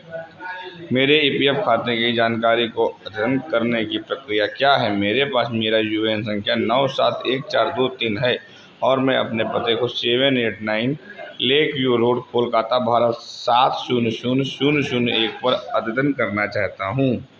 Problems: constant background noise